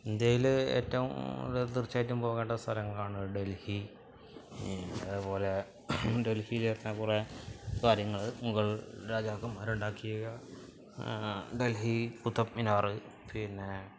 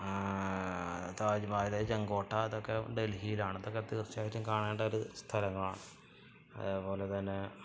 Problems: none marked